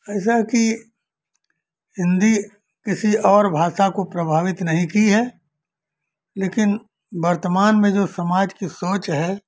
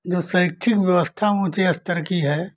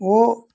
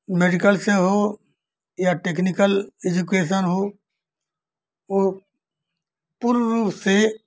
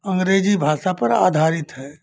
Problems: none marked